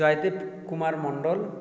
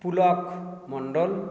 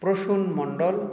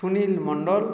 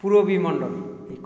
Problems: none marked